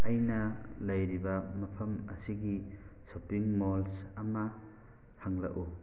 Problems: constant background noise